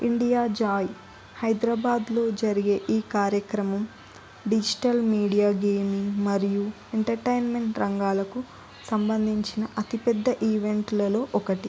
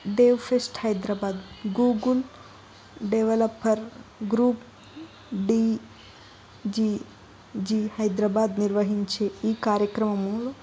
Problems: background sounds at intervals, continuous background conversations